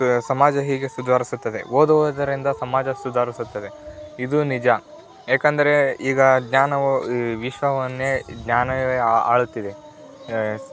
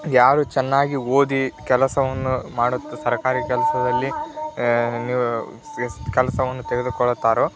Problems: background sounds at intervals, continuous background conversations